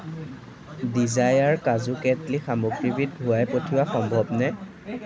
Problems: continuous background conversations